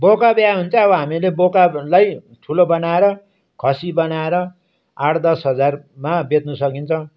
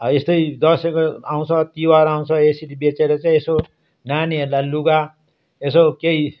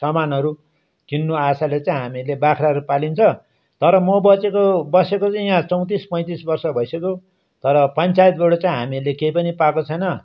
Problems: background sounds at intervals